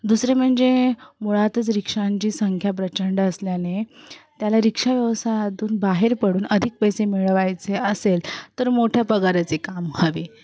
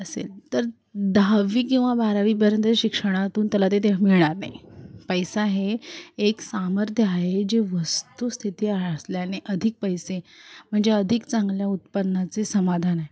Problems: background sounds at intervals, continuous background conversations